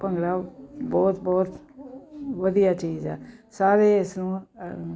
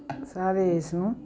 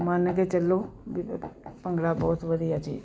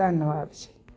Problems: none marked